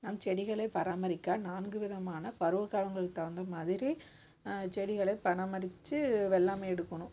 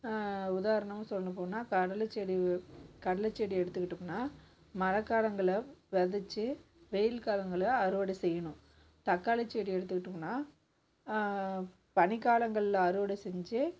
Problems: background sounds at intervals